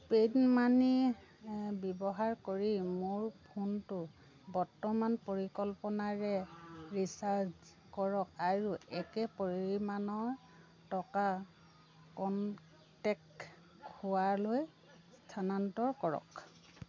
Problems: none marked